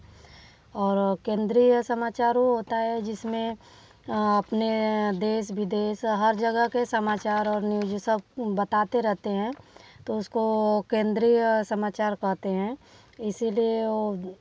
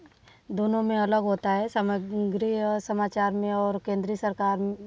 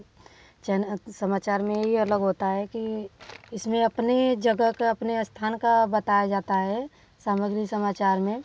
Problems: background sounds at intervals